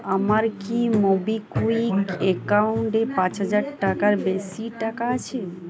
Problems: constant background noise, continuous background conversations